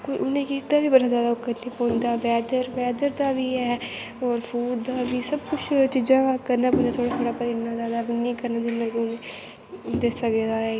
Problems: constant background noise, echo